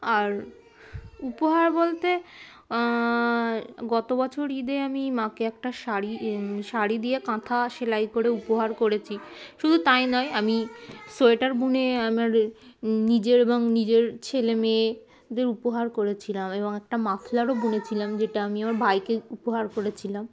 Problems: constant background noise, continuous background conversations